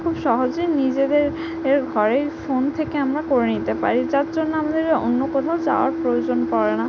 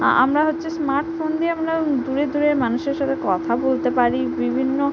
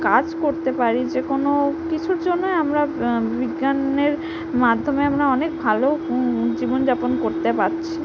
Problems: constant background noise